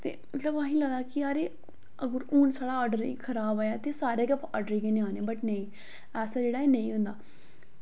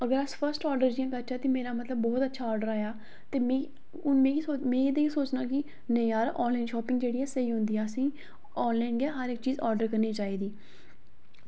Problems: none marked